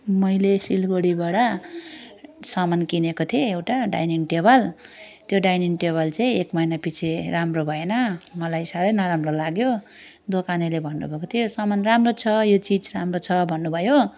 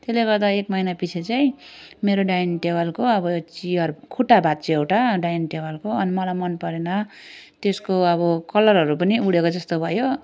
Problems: none marked